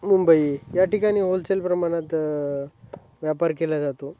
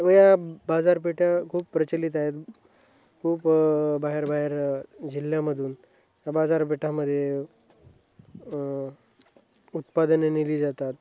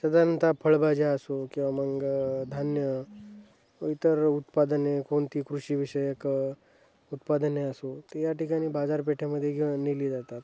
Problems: none marked